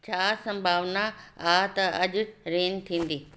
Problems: constant background noise, echo